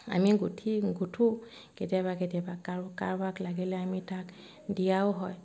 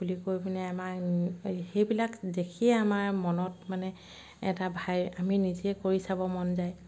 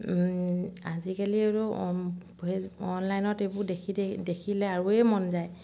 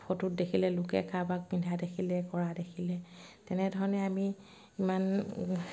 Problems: none marked